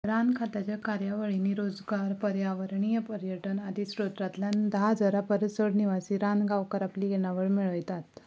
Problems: continuous background conversations, low volume